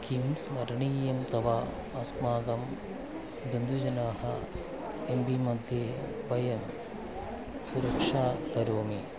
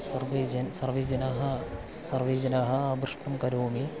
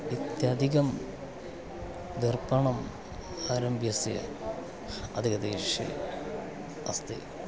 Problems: background sounds at intervals, low volume